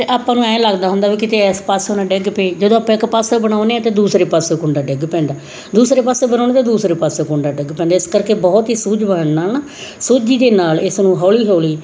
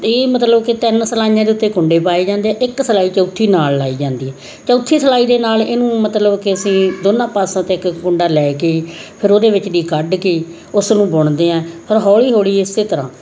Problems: none marked